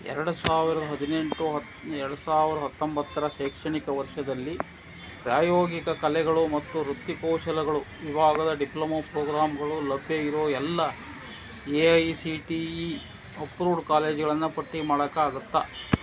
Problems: constant background noise